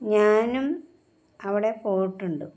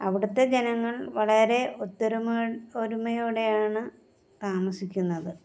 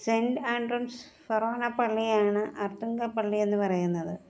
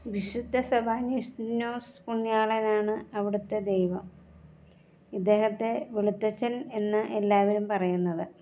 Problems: background sounds at intervals